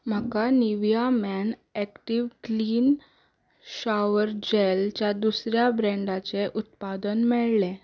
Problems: background sounds at intervals, background conversations at intervals